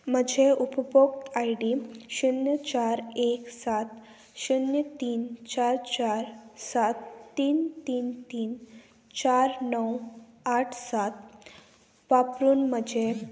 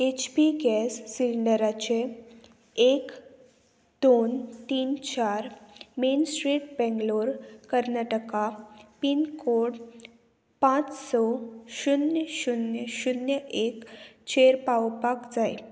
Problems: constant background noise